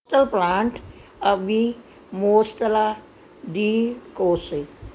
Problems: background sounds at intervals